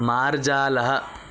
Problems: constant background noise